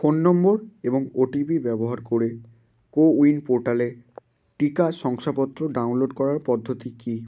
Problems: none marked